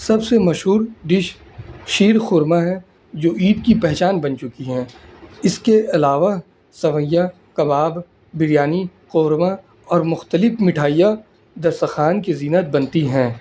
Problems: constant background noise